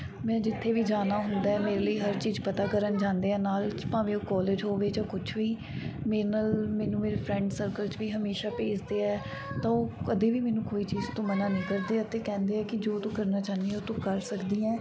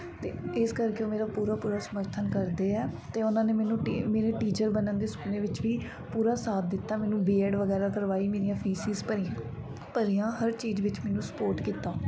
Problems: background sounds at intervals, background conversations at intervals